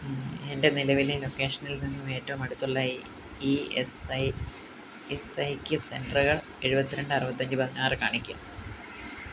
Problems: low volume